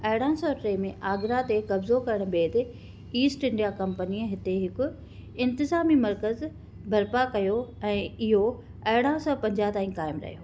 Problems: constant background noise